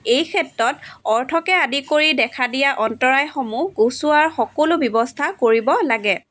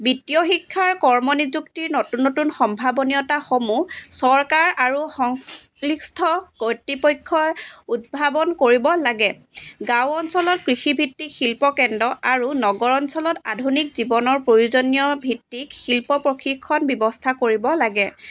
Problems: background sounds at intervals, background conversations at intervals